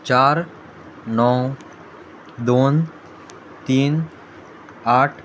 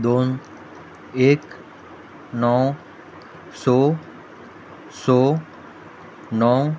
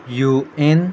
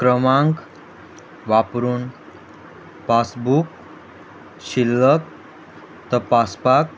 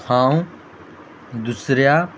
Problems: constant background noise